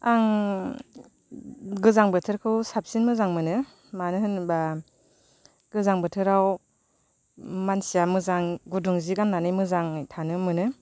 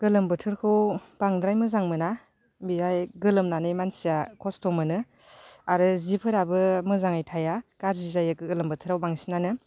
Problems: none marked